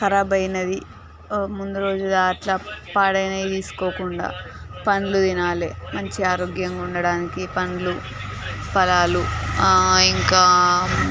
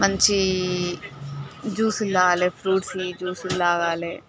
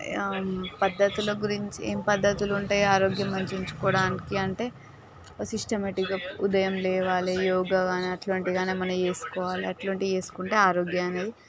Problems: continuous background conversations